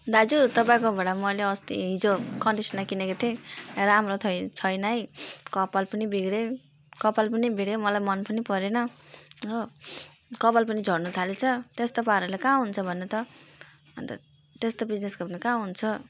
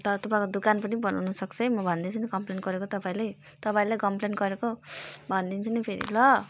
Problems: background sounds at intervals